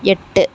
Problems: none marked